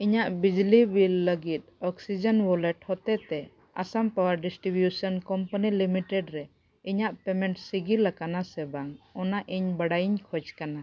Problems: none marked